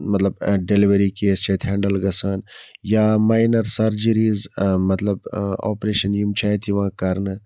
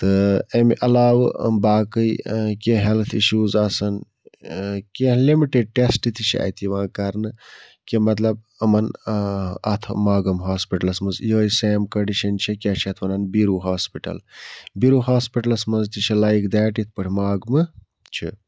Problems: background sounds at intervals